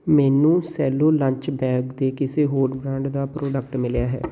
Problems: background sounds at intervals